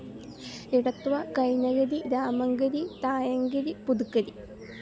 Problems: background sounds at intervals, low volume